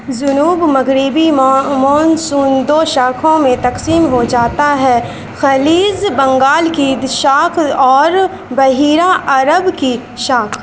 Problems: constant background noise